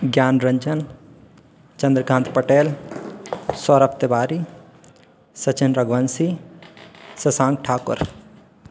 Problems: constant background noise, echo